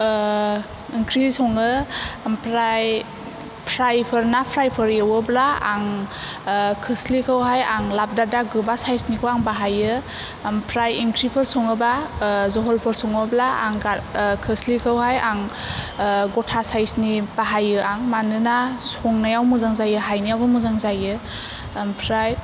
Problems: none marked